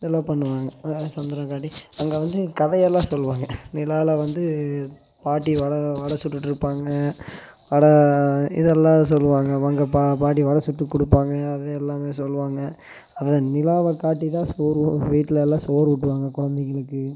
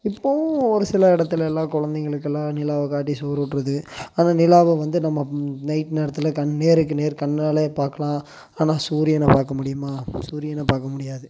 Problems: constant background noise